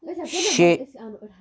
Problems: background sounds at intervals